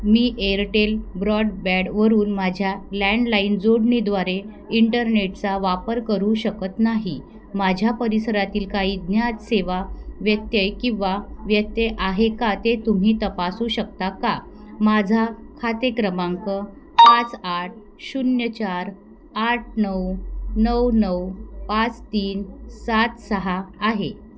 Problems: none marked